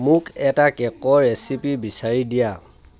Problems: continuous background conversations